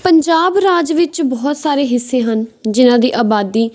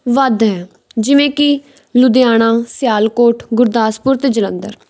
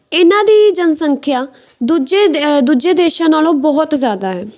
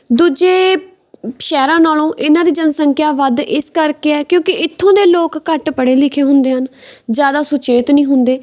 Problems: background sounds at intervals